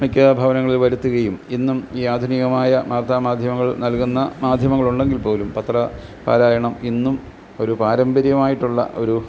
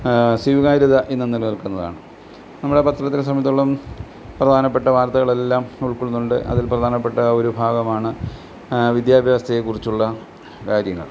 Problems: background sounds at intervals